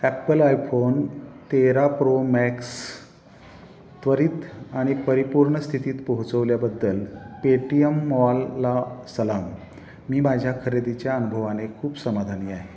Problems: none marked